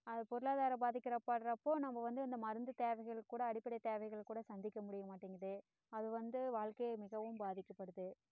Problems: low volume